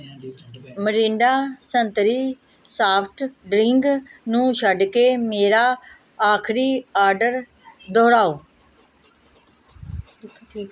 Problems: background conversations at intervals